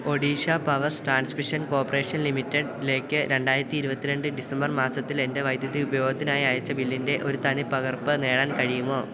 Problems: constant background noise